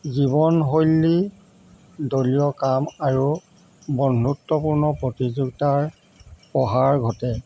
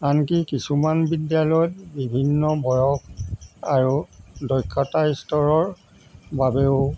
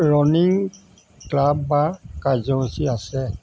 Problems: constant background noise